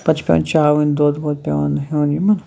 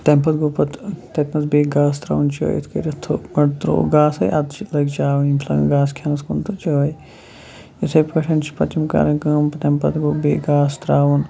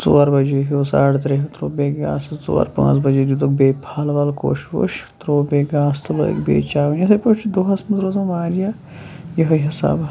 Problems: background sounds at intervals, background conversations at intervals